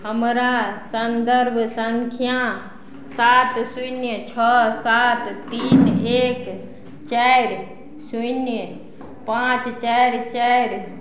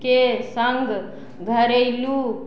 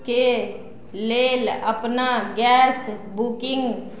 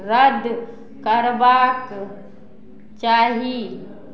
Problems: none marked